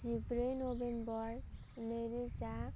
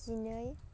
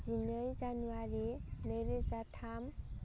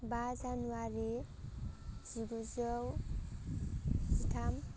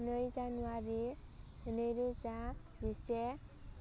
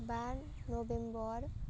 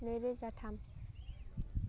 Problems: constant background noise